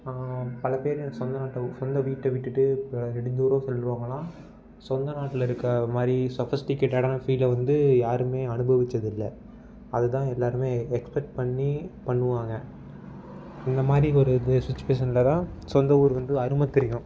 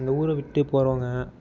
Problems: background sounds at intervals